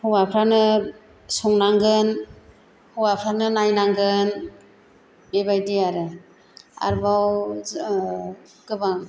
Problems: none marked